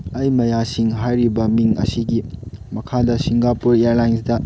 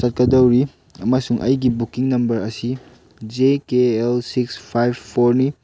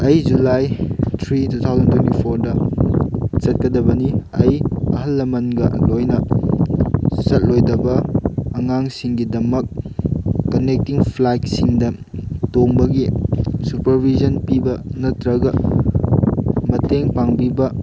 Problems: background sounds at intervals